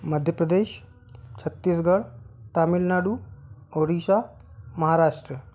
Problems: none marked